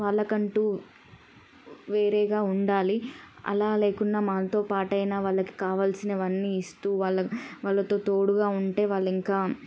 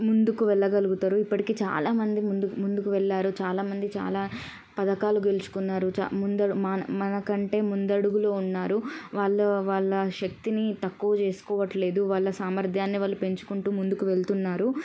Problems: none marked